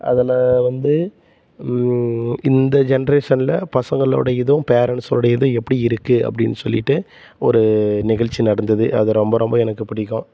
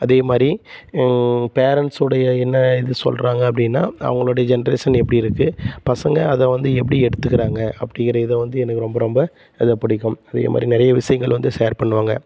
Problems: constant background noise